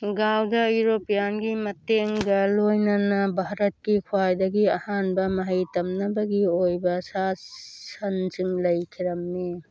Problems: background sounds at intervals